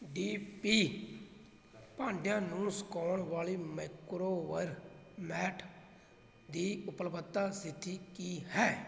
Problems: constant background noise, background conversations at intervals